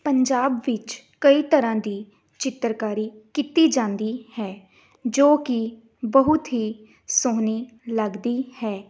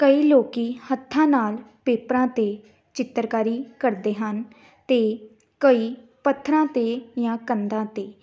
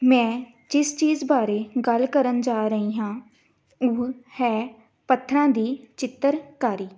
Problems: background sounds at intervals